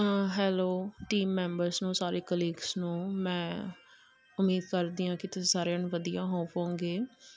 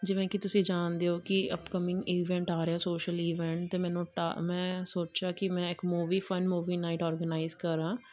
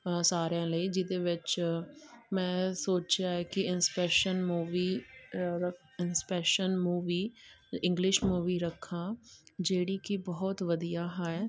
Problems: none marked